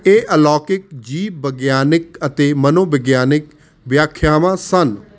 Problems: constant background noise